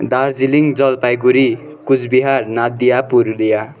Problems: none marked